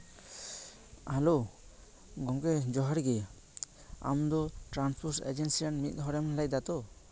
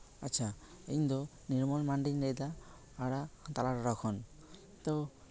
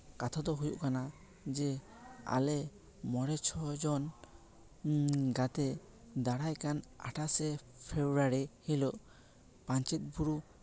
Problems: none marked